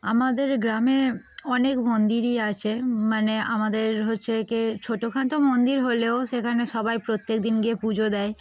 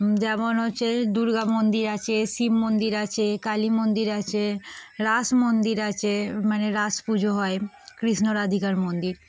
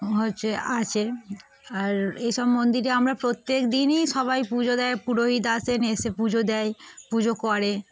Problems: constant background noise, background conversations at intervals